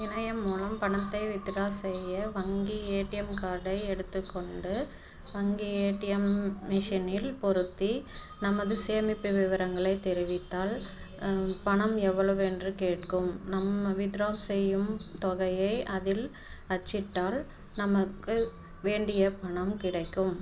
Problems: constant background noise